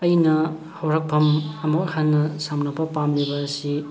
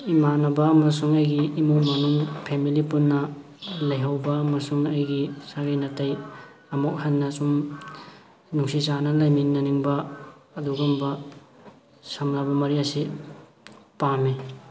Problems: constant background noise